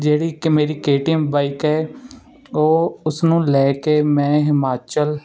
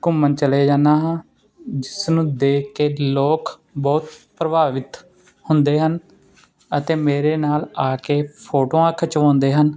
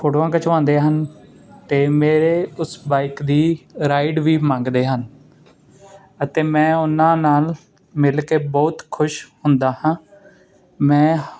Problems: constant background noise